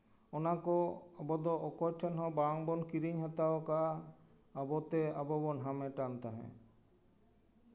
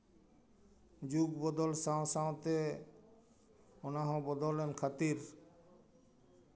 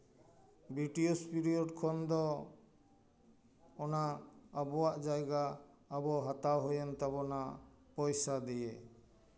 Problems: none marked